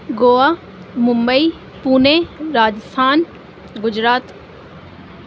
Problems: constant background noise